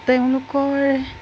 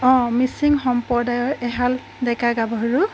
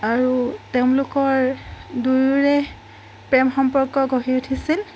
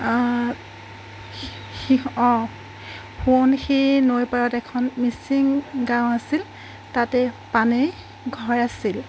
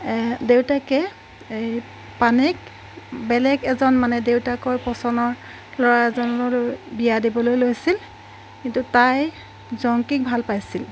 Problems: background sounds at intervals